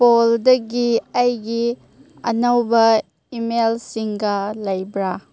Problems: none marked